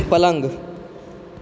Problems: background sounds at intervals